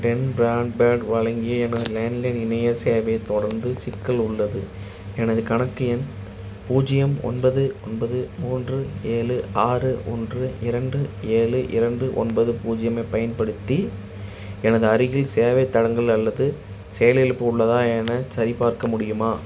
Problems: background sounds at intervals